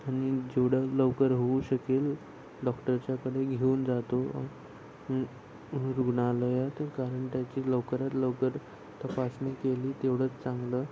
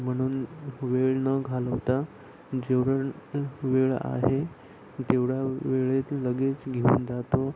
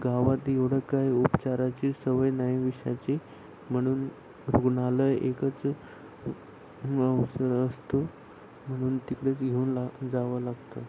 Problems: none marked